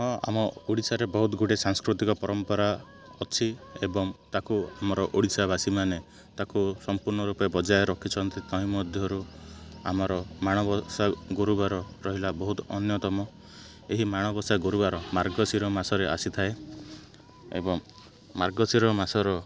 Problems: constant background noise